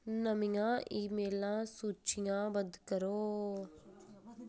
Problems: background sounds at intervals